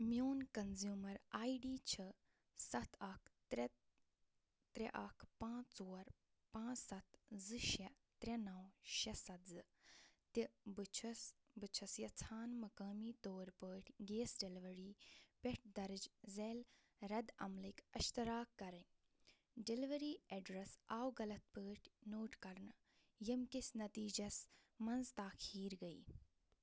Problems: low volume